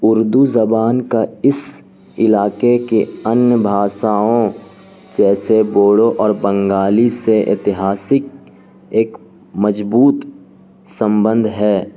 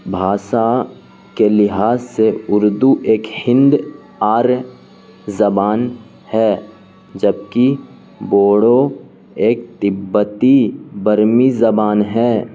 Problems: constant background noise